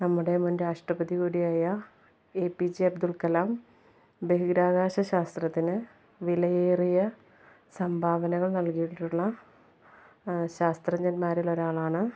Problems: none marked